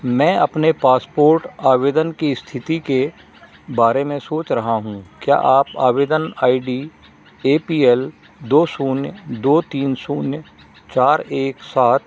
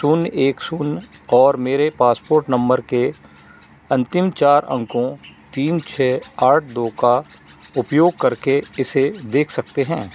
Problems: none marked